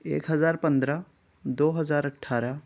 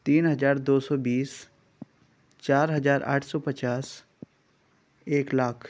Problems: none marked